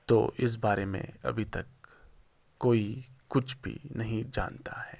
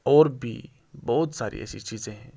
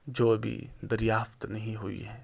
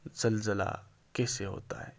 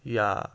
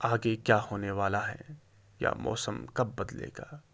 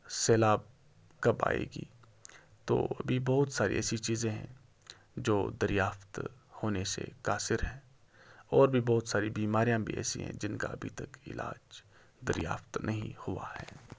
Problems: constant background noise